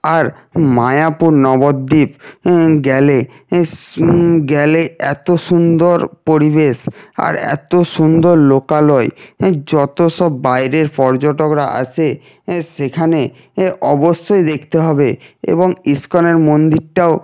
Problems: constant background noise